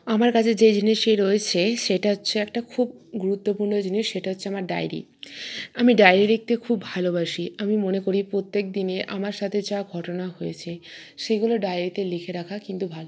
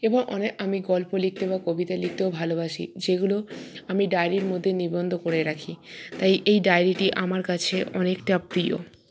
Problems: background sounds at intervals